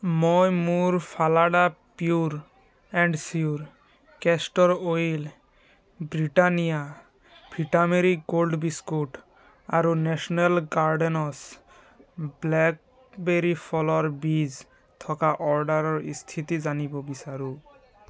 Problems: background sounds at intervals, background conversations at intervals